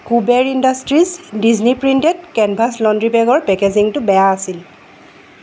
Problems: constant background noise